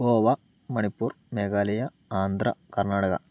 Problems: low volume